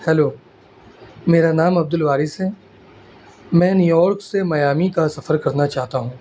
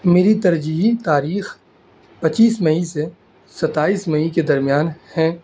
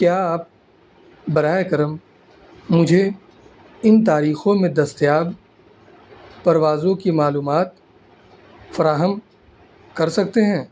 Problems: constant background noise